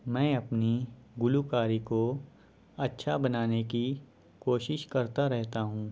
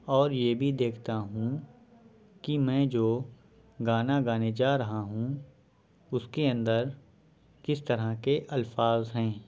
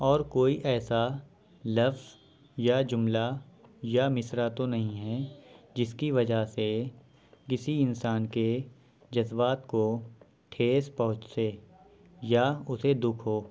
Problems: background sounds at intervals, background conversations at intervals